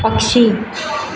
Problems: constant background noise